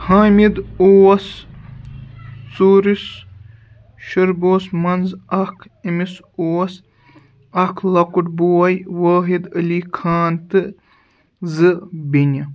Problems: background sounds at intervals, background conversations at intervals